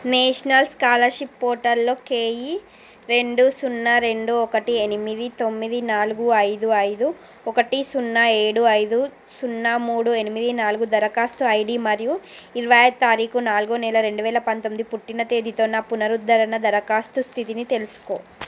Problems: constant background noise